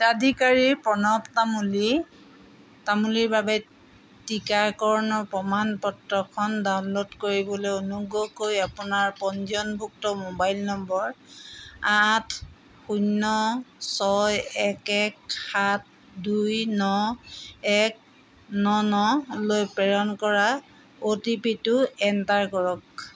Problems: none marked